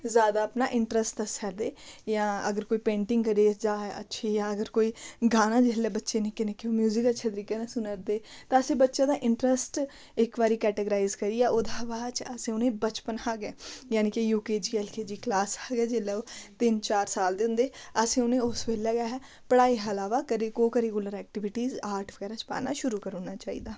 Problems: none marked